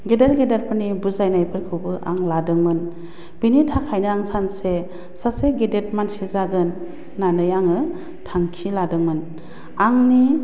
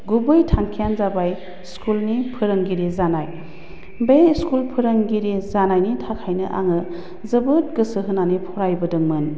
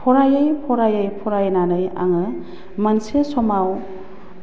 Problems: low volume